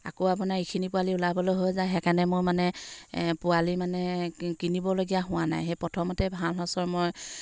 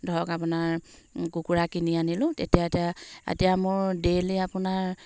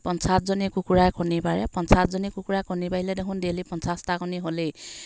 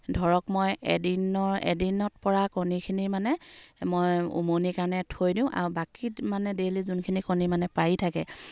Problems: none marked